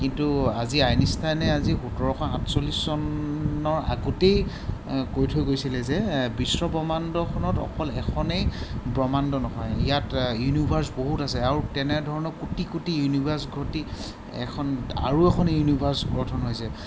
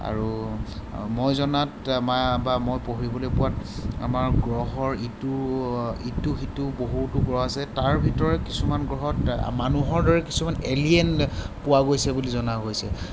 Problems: constant background noise